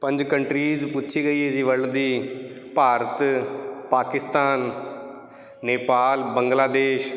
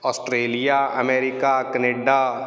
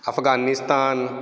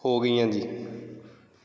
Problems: background sounds at intervals